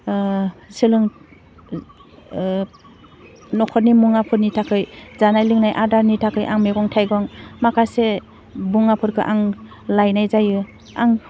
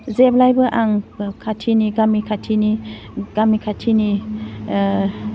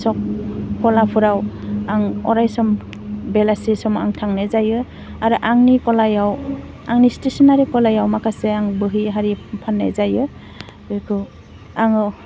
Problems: constant background noise